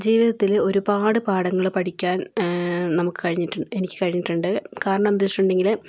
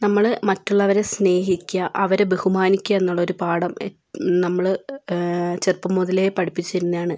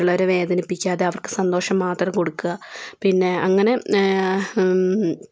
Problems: none marked